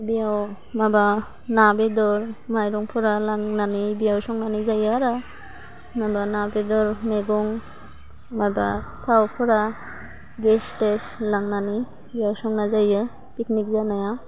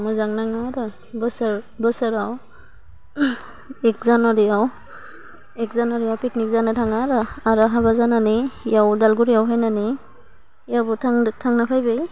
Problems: low volume